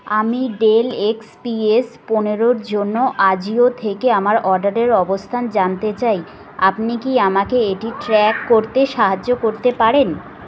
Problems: constant background noise, background conversations at intervals